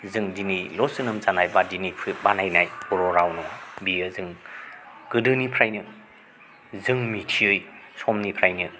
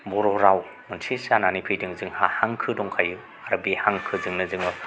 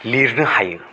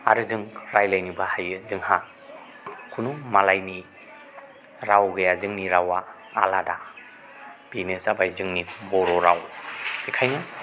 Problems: none marked